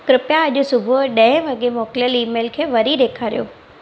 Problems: constant background noise